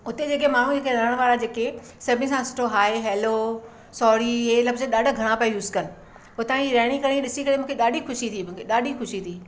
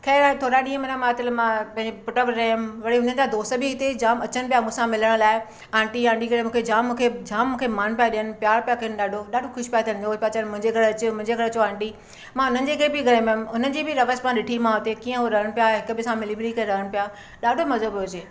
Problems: none marked